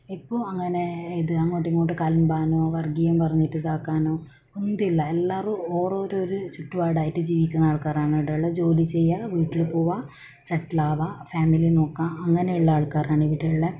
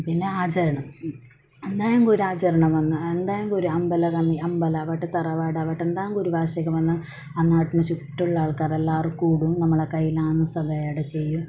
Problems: background sounds at intervals, low volume